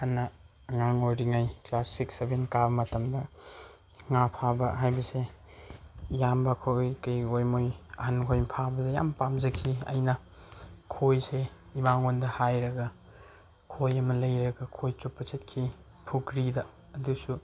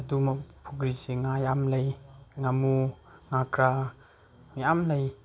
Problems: none marked